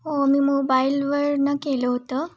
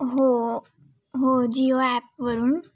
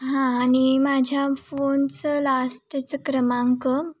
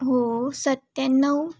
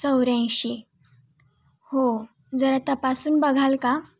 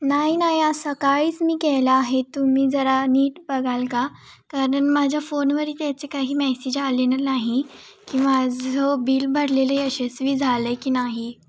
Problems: background sounds at intervals, background conversations at intervals